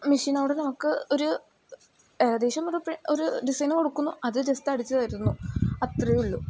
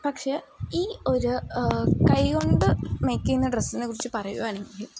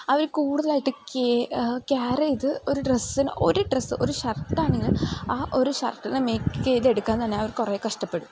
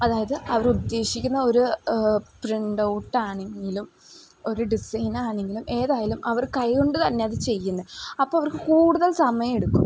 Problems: background sounds at intervals